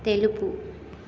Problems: none marked